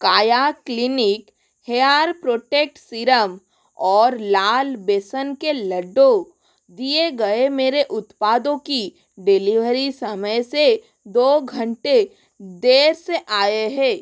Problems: none marked